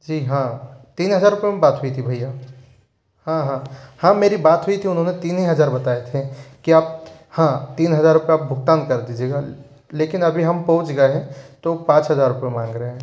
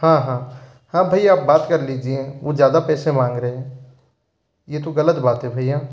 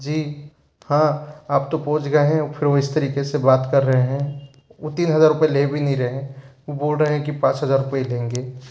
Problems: background sounds at intervals